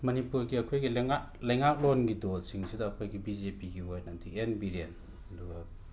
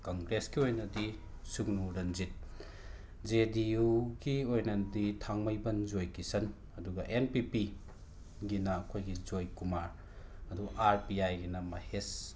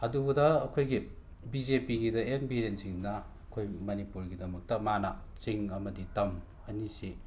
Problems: constant background noise